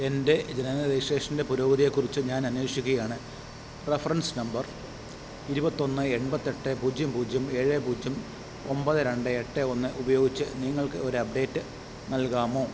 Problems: constant background noise